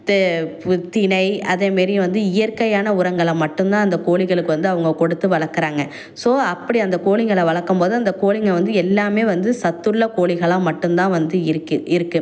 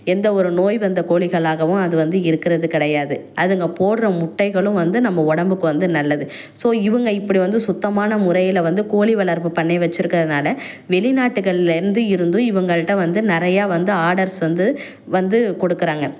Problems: none marked